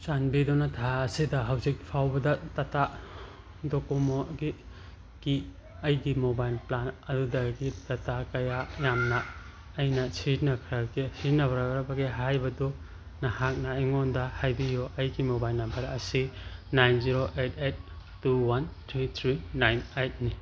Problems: constant background noise